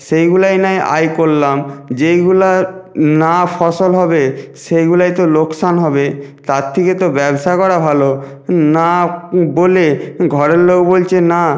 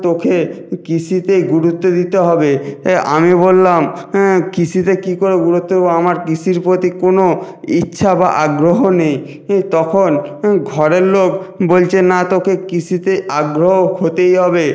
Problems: background sounds at intervals